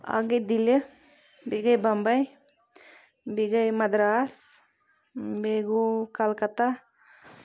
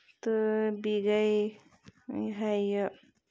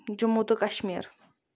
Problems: constant background noise